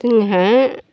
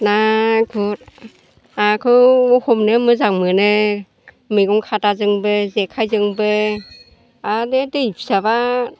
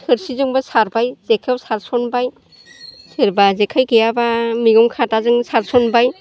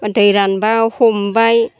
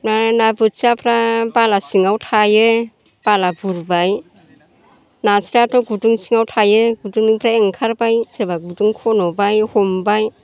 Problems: constant background noise